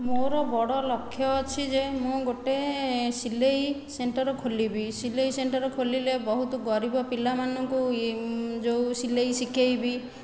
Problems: continuous background conversations